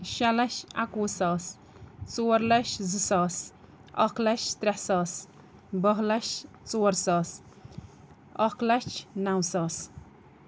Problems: none marked